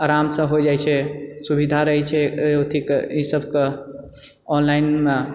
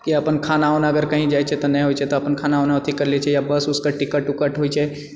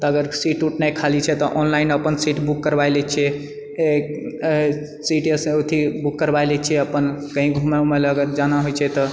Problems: none marked